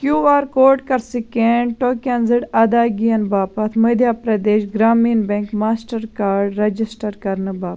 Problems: none marked